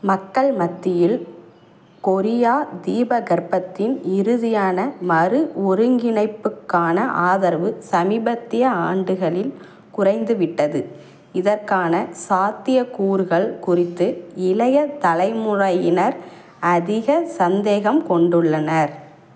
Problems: none marked